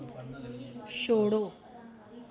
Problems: none marked